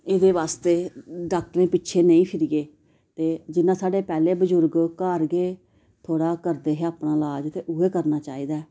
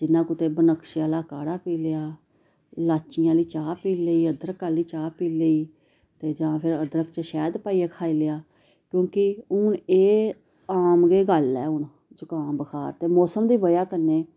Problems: background sounds at intervals